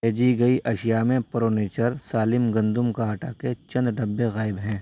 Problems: constant background noise